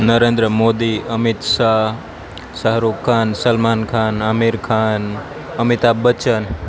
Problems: constant background noise